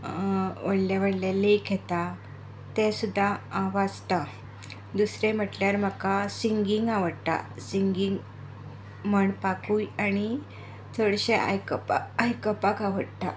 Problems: constant background noise